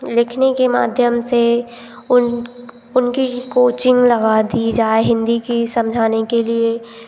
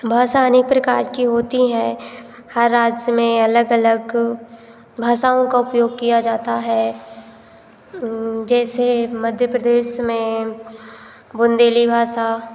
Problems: none marked